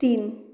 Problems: background conversations at intervals